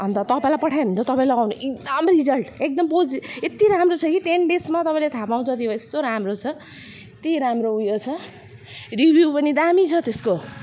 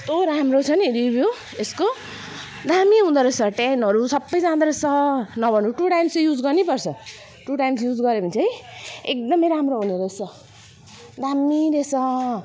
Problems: none marked